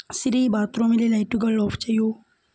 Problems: low volume